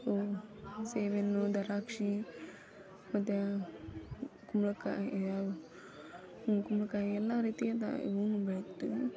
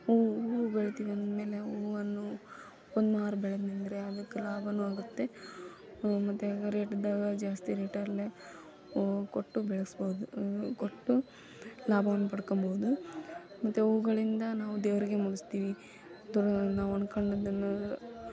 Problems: none marked